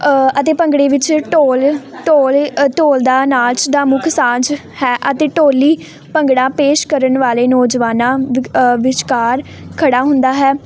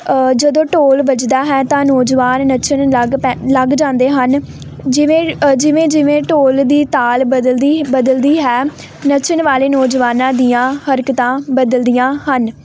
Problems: none marked